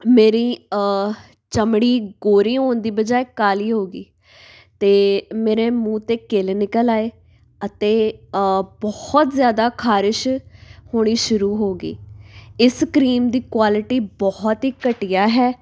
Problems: none marked